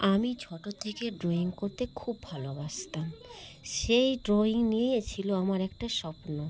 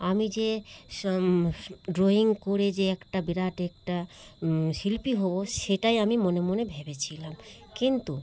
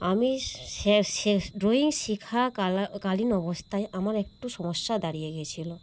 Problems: constant background noise, background conversations at intervals